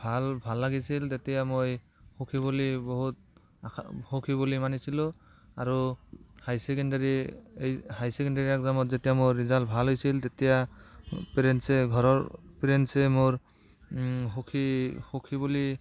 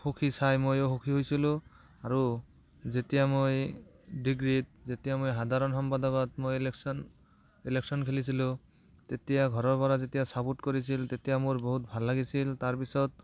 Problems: none marked